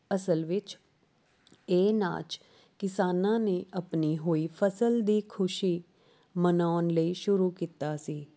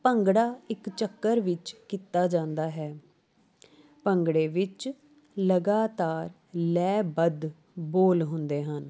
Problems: background sounds at intervals